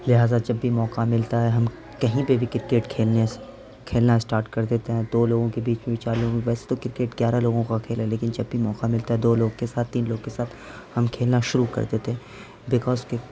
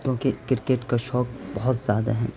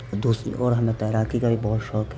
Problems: constant background noise